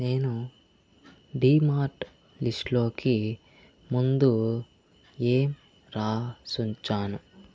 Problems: constant background noise